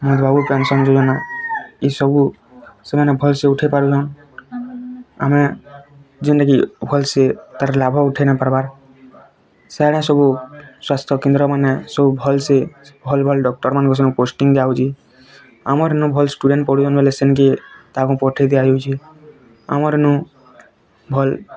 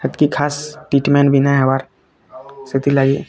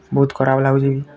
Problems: constant background noise